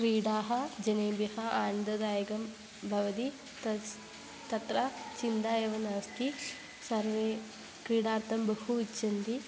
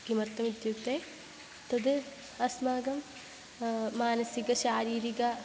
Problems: constant background noise